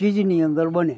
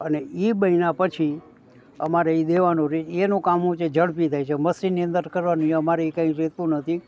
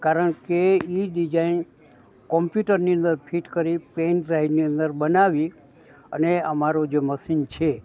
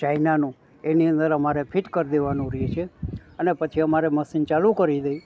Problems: background conversations at intervals